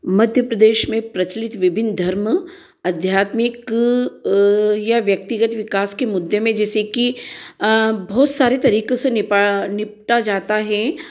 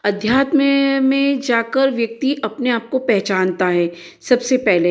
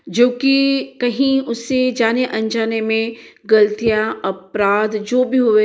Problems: echo